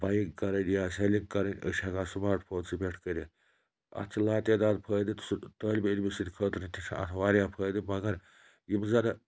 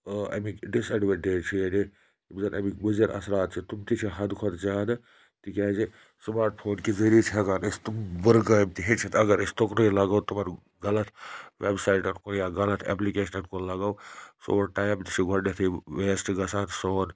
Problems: background sounds at intervals